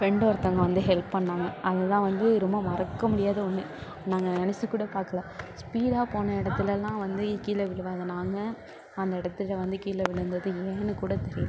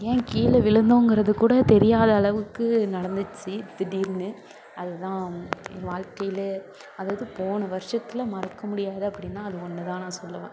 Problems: constant background noise